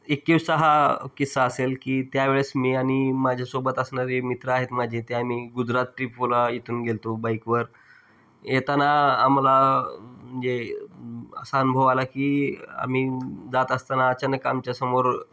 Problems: background sounds at intervals